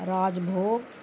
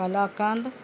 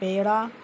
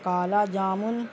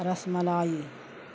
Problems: constant background noise